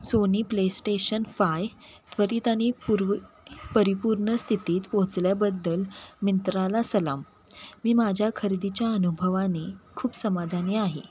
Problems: constant background noise